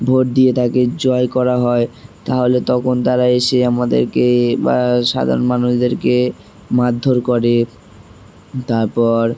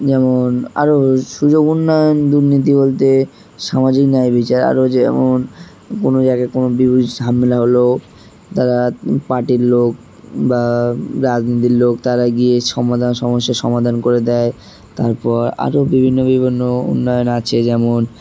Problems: constant background noise